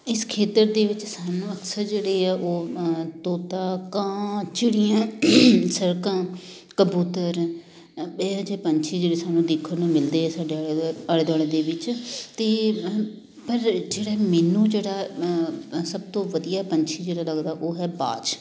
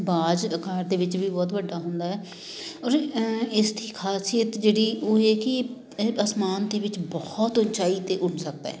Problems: constant background noise, background conversations at intervals